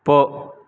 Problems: constant background noise